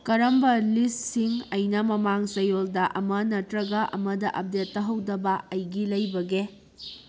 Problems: background sounds at intervals